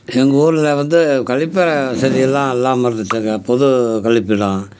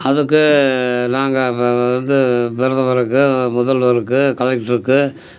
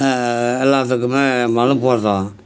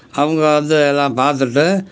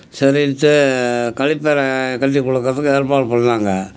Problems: none marked